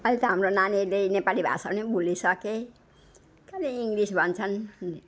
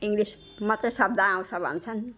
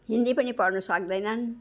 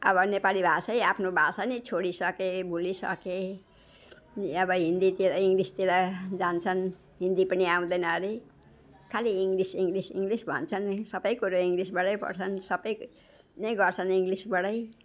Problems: background sounds at intervals